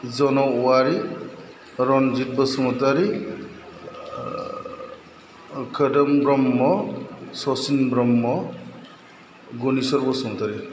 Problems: none marked